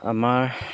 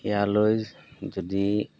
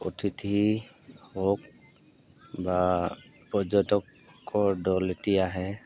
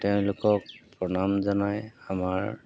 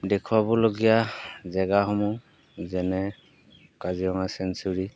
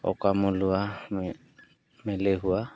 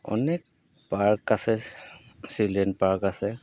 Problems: background sounds at intervals